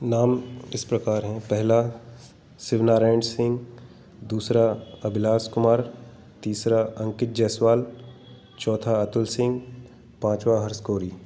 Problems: background sounds at intervals